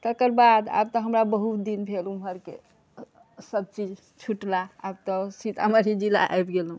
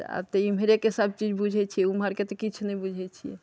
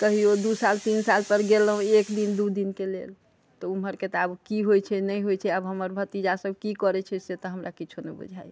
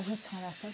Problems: background conversations at intervals